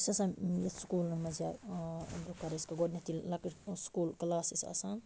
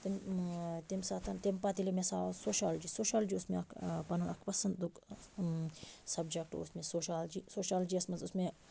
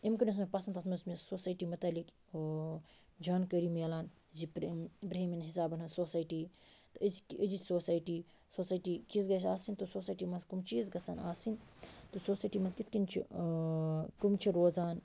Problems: none marked